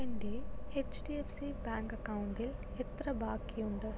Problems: low volume